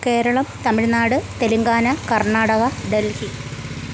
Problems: constant background noise, low volume